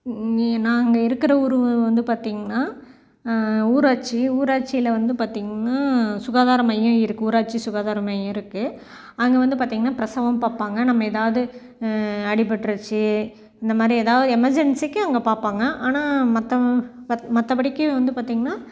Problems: background sounds at intervals